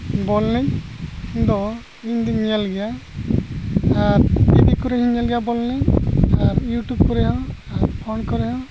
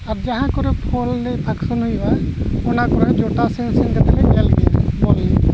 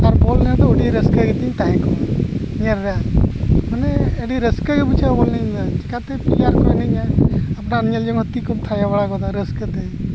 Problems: constant background noise